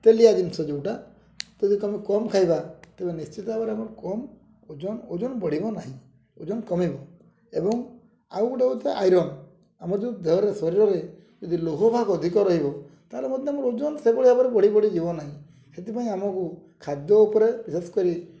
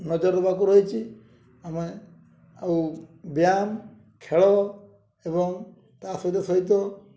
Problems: low volume